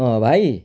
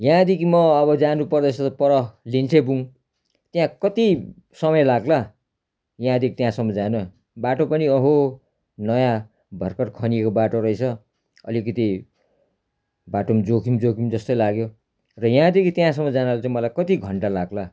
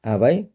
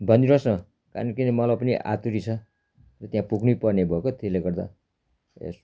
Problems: constant background noise